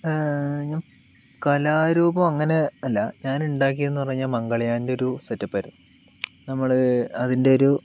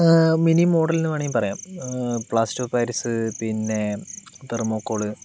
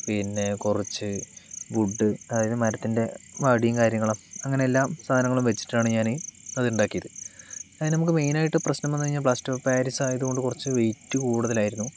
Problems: constant background noise